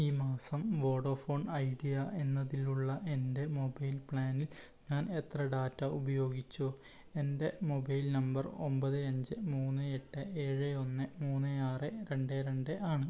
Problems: low volume